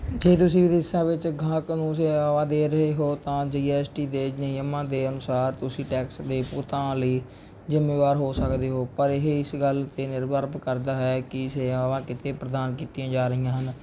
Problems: none marked